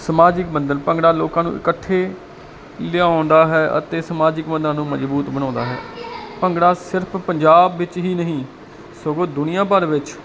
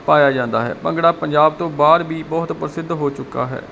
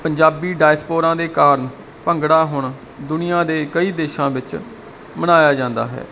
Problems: constant background noise, background conversations at intervals